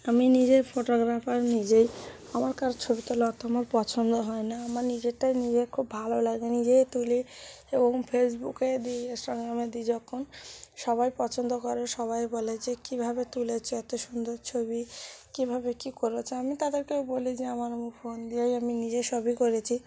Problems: constant background noise